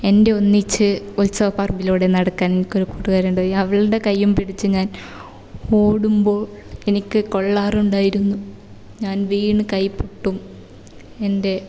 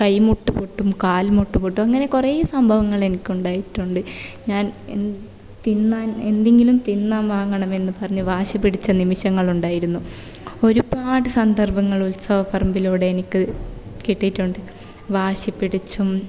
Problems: none marked